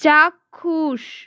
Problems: none marked